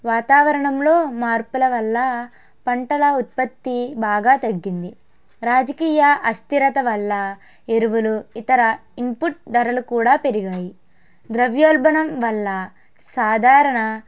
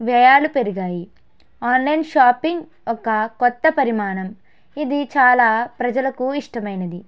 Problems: background sounds at intervals